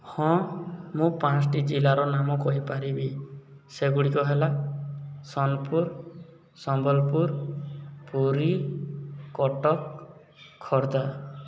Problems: none marked